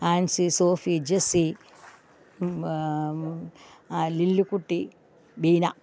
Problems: background sounds at intervals, background conversations at intervals